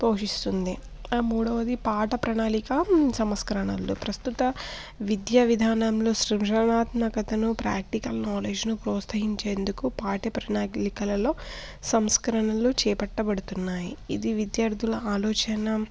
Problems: constant background noise, background conversations at intervals